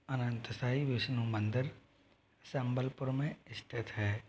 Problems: none marked